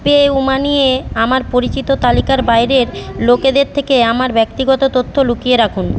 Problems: background conversations at intervals